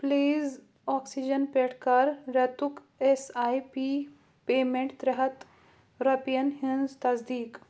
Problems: constant background noise